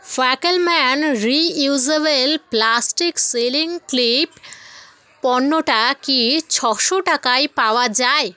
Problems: continuous background conversations